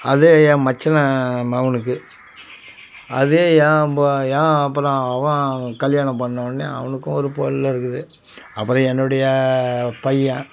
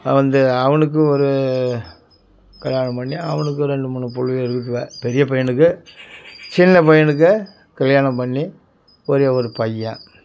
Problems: background sounds at intervals, background conversations at intervals